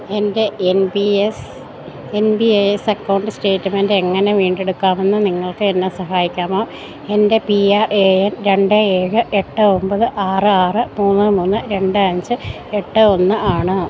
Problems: none marked